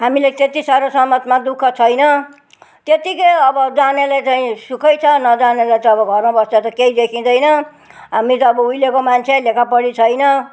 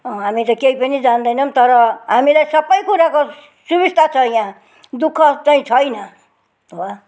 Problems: background conversations at intervals